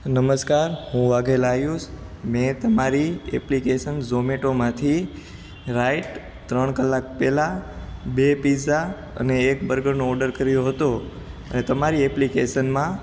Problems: constant background noise